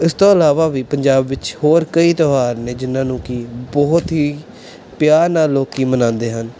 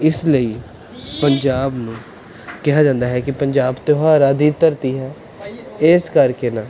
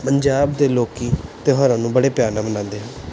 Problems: none marked